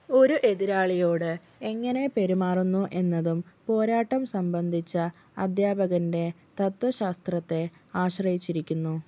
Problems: none marked